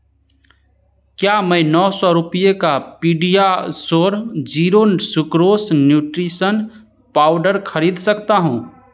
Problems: none marked